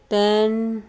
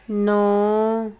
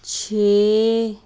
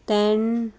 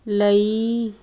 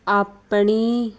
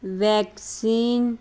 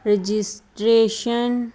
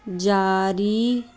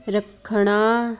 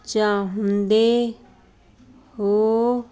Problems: constant background noise